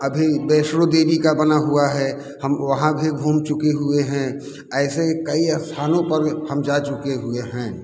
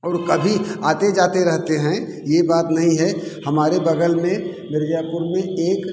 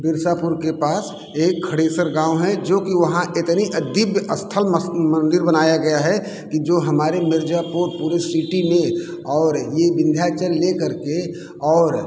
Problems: constant background noise